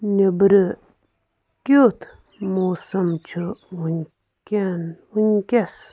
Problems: constant background noise